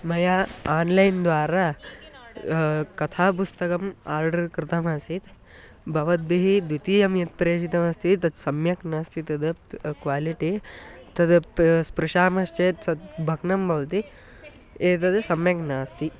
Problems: background sounds at intervals